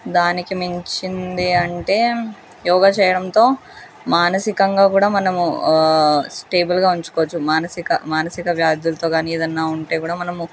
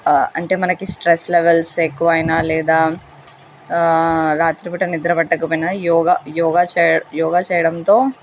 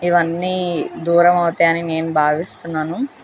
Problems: constant background noise